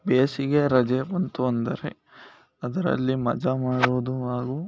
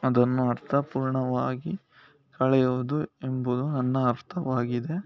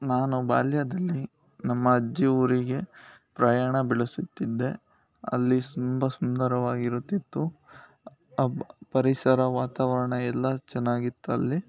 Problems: none marked